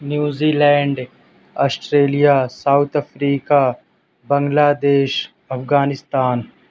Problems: constant background noise